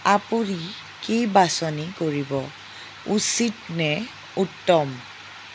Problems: none marked